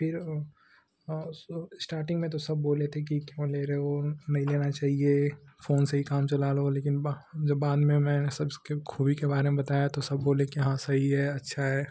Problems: constant background noise